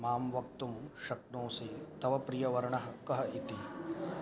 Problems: background sounds at intervals